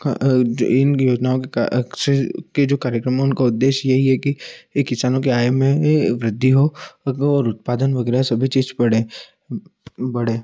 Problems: echo